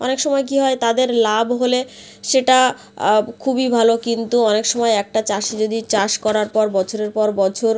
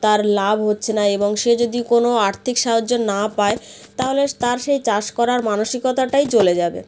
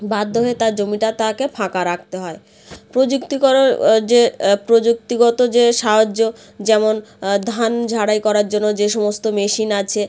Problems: none marked